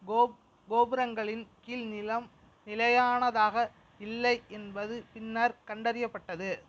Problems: constant background noise